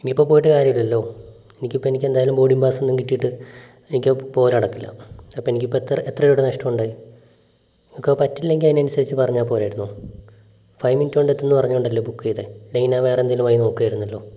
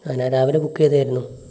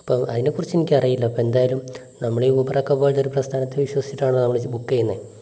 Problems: low volume